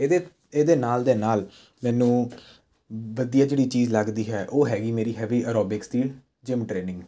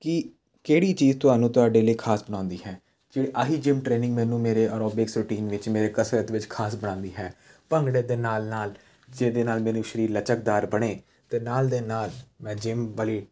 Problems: none marked